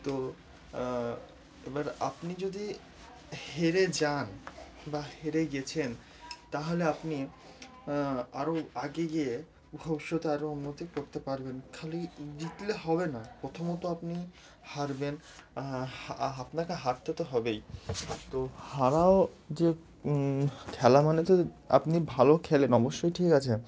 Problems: none marked